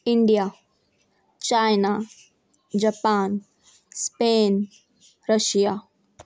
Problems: none marked